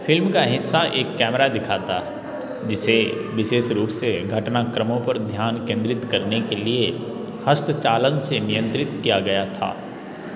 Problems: constant background noise, background conversations at intervals